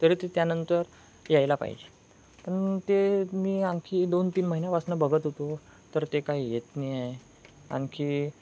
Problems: none marked